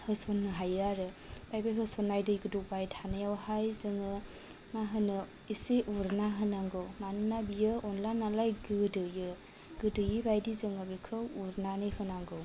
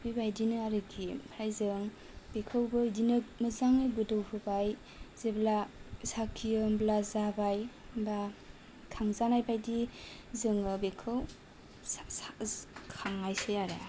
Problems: low volume